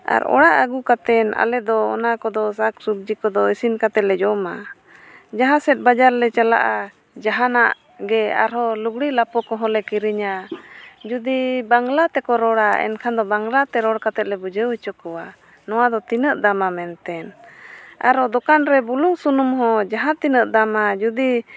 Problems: none marked